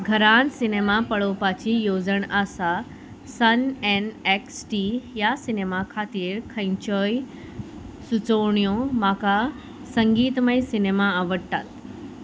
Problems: constant background noise